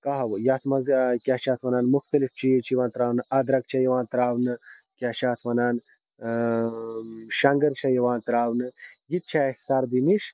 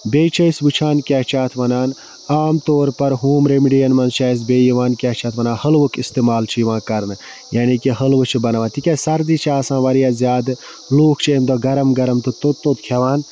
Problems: constant background noise